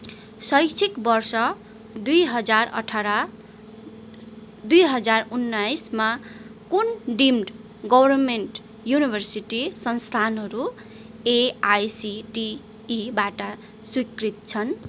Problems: constant background noise